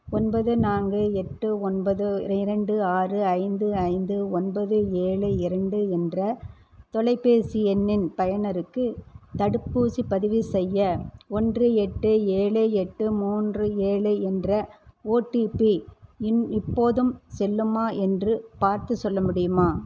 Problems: constant background noise